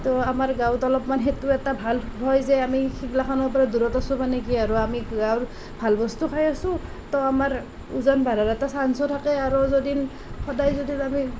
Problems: constant background noise